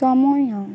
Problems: none marked